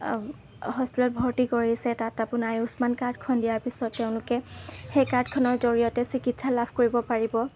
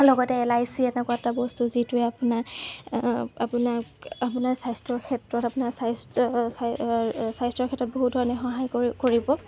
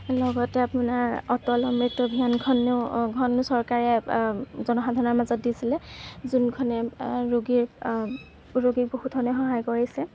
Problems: background sounds at intervals